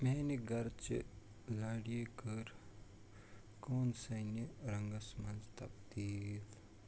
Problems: constant background noise, low volume